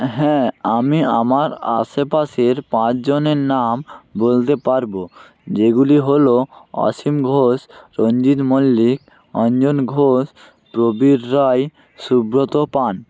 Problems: constant background noise